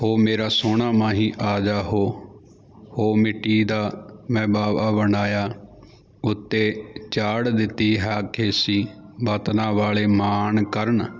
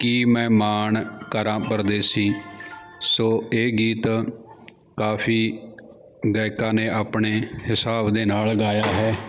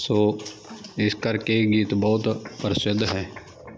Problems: continuous background conversations